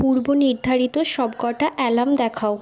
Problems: continuous background conversations